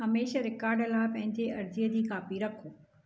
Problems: constant background noise